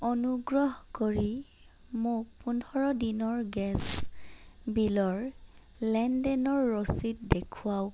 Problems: none marked